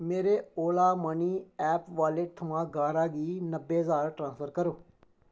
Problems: none marked